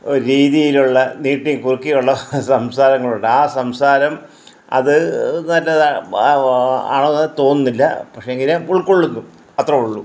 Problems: none marked